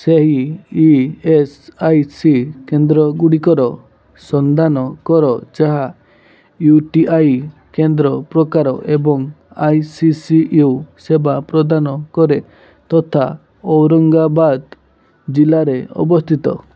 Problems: none marked